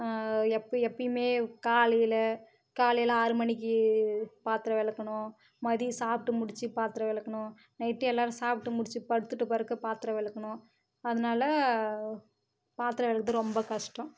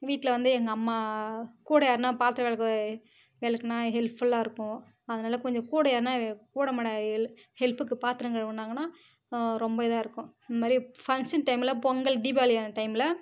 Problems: none marked